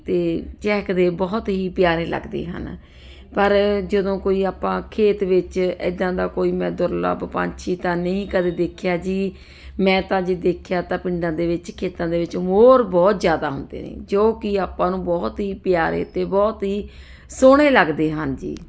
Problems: none marked